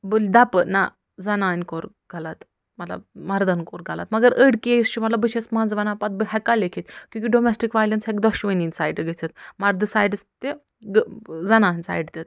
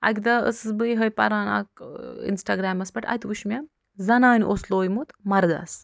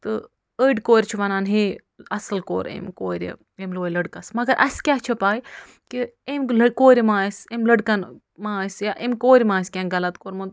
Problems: none marked